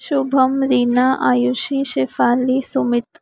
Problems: none marked